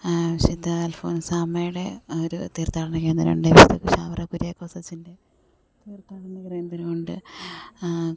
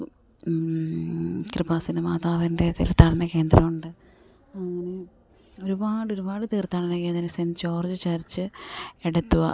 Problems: none marked